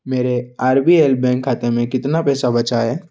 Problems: none marked